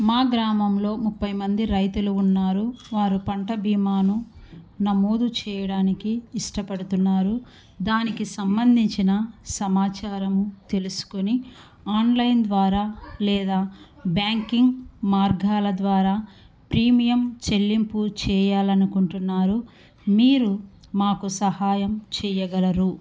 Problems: none marked